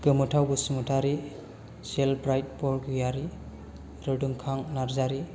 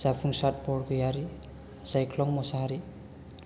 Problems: none marked